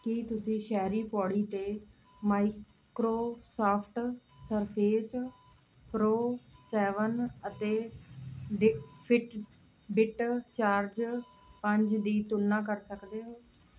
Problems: none marked